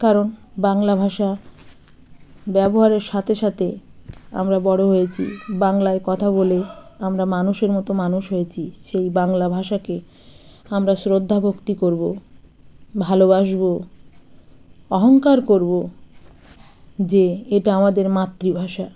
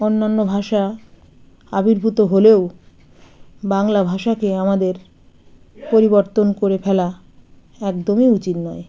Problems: background sounds at intervals, continuous background conversations